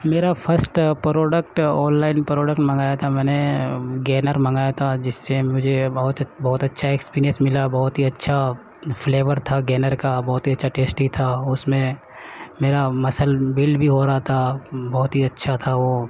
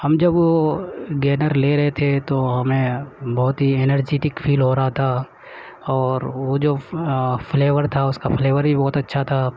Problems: none marked